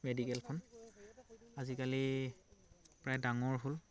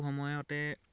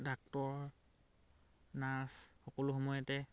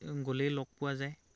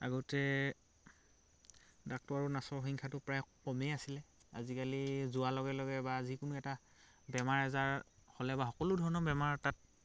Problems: constant background noise